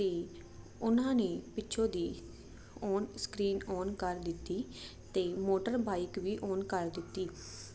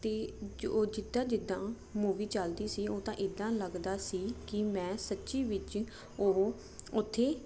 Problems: constant background noise